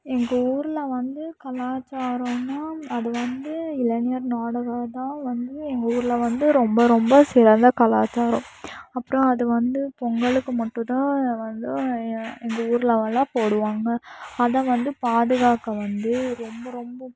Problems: background sounds at intervals